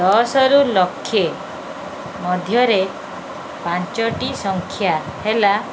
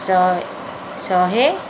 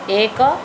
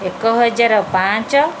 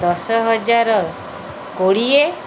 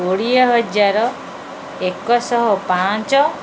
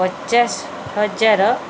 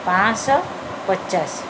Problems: background sounds at intervals